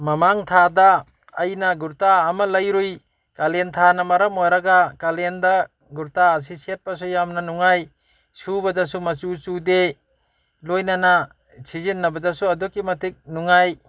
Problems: background sounds at intervals